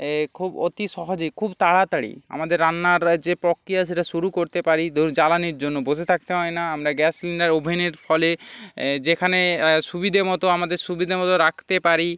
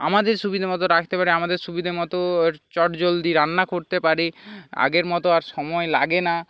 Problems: background sounds at intervals